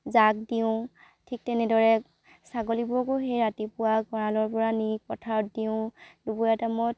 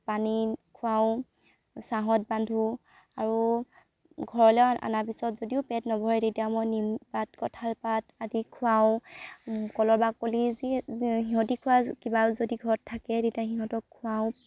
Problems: background sounds at intervals